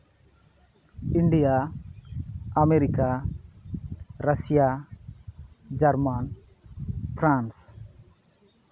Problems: background sounds at intervals